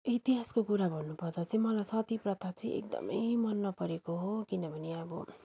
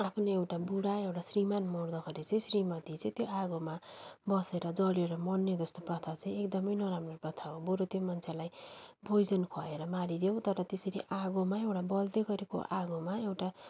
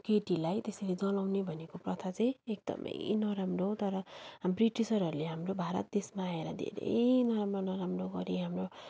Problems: background sounds at intervals